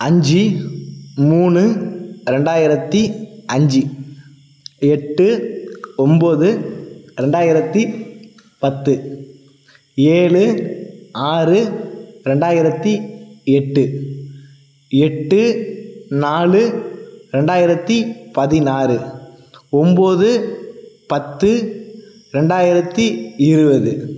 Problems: none marked